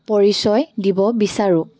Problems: background sounds at intervals